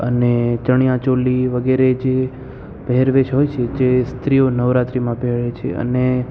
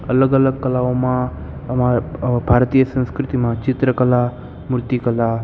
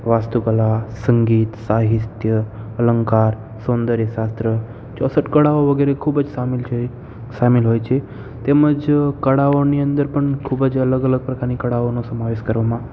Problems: constant background noise